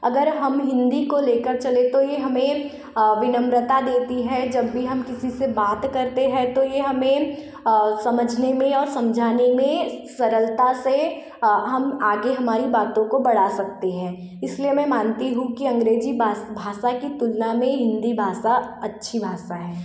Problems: constant background noise